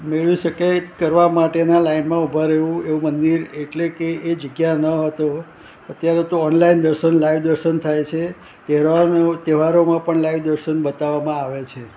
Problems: constant background noise